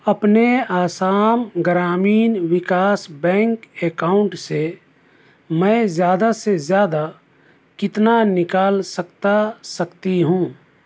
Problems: none marked